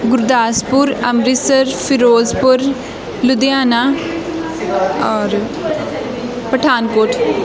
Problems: constant background noise, continuous background conversations